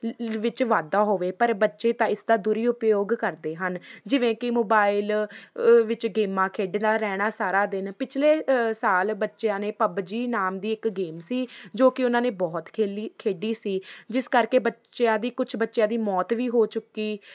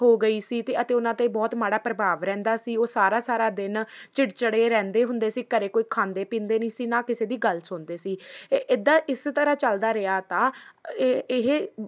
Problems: none marked